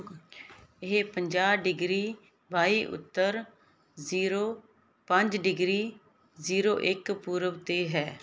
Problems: background conversations at intervals